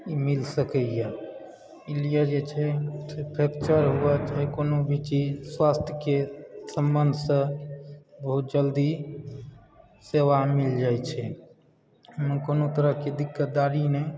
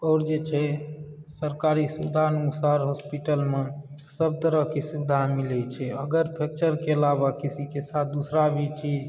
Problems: background conversations at intervals